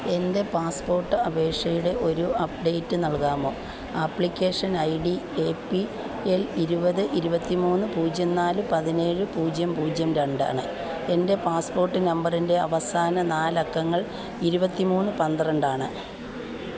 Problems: none marked